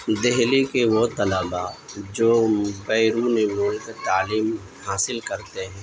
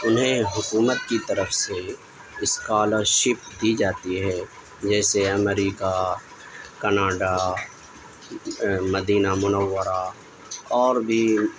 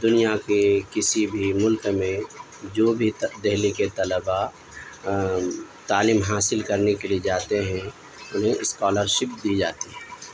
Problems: constant background noise, background conversations at intervals